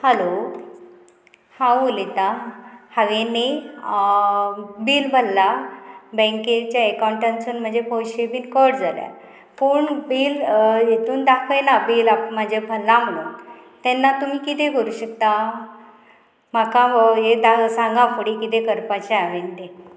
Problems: constant background noise